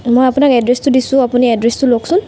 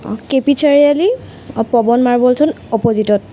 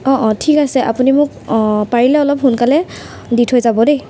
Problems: none marked